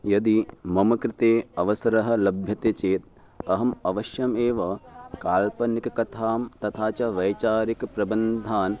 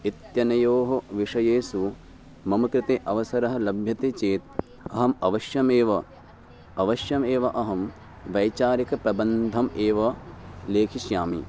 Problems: background sounds at intervals